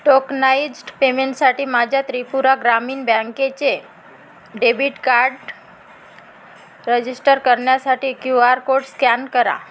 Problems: constant background noise